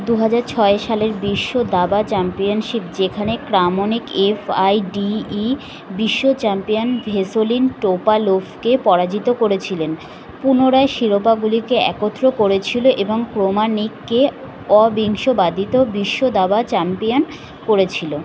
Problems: constant background noise